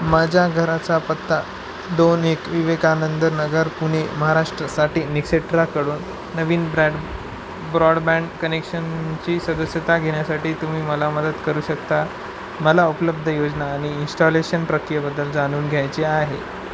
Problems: constant background noise